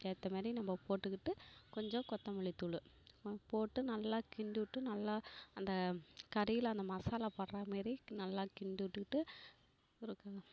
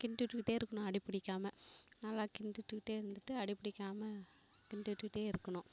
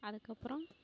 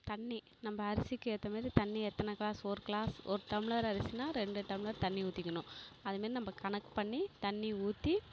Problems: background sounds at intervals